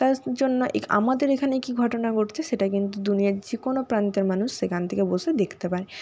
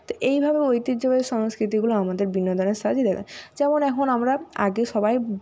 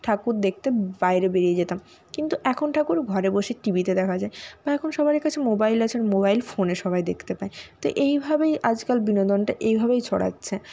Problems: none marked